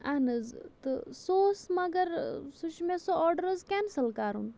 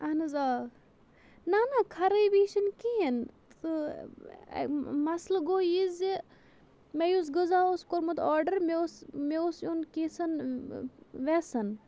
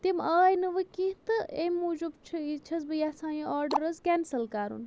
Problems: constant background noise